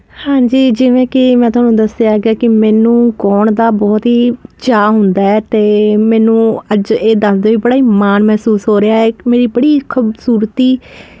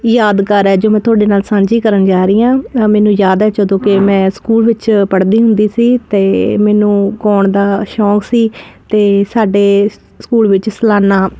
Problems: none marked